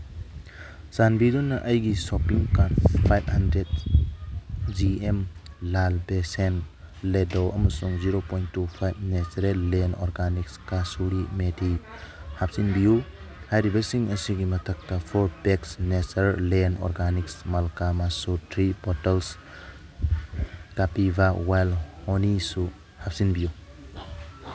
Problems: background sounds at intervals